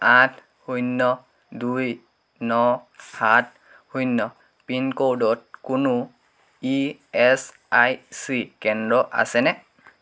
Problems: constant background noise